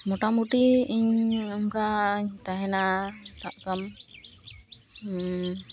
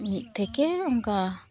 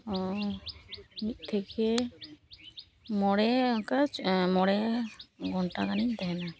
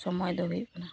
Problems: constant background noise